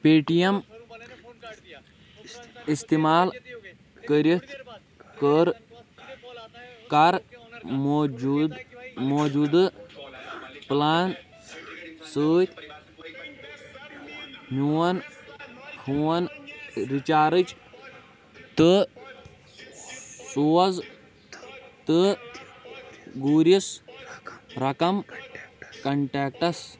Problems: constant background noise, continuous background conversations